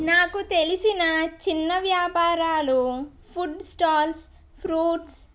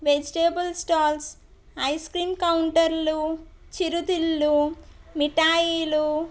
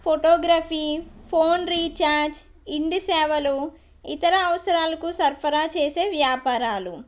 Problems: none marked